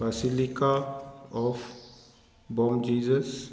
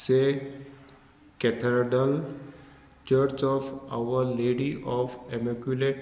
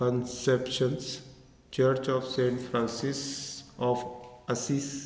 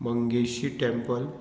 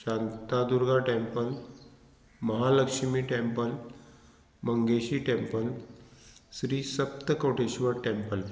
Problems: none marked